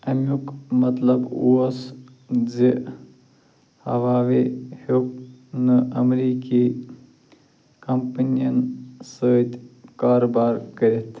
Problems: low volume